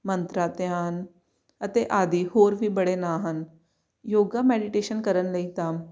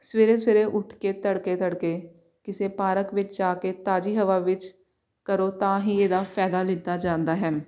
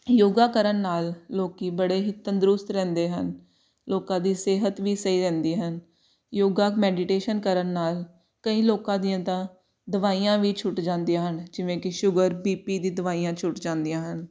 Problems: none marked